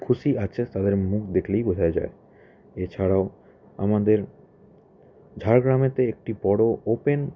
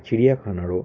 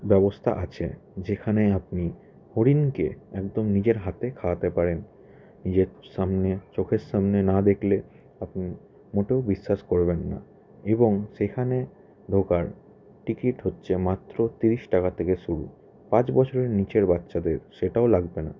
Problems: background sounds at intervals, continuous background conversations